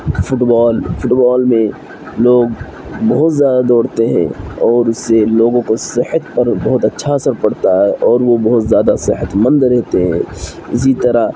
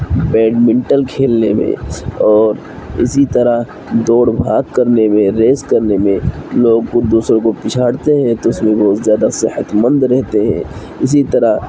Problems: constant background noise